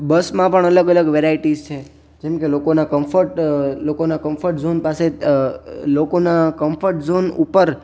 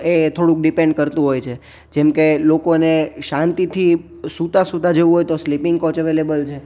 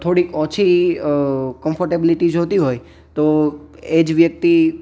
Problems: background sounds at intervals